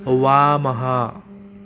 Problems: constant background noise